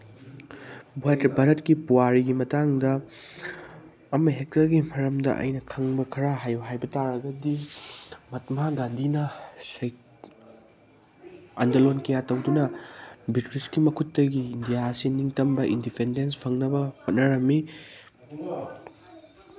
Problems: background sounds at intervals